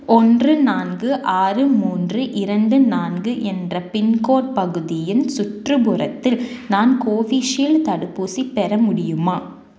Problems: none marked